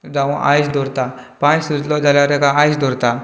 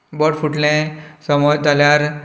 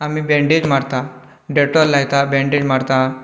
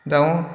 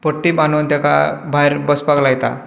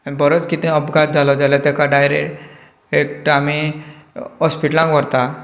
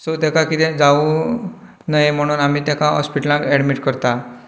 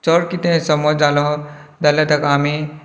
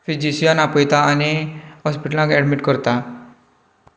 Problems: background conversations at intervals